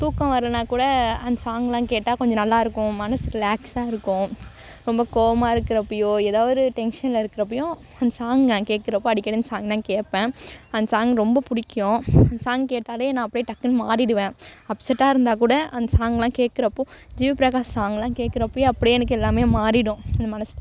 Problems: background sounds at intervals